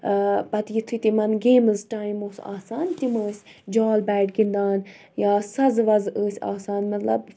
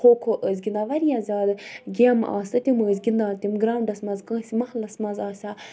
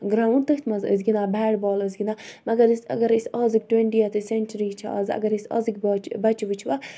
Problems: none marked